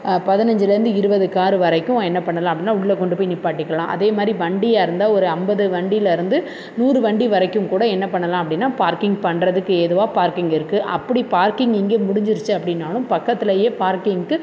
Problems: constant background noise